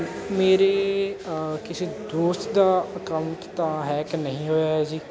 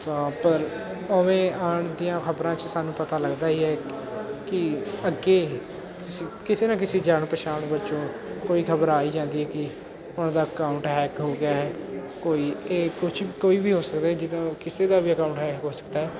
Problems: constant background noise, continuous background conversations